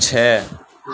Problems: constant background noise